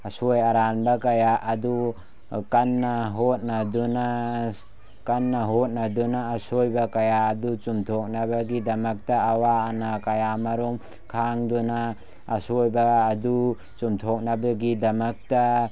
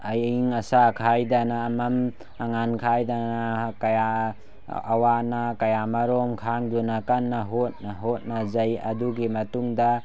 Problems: background sounds at intervals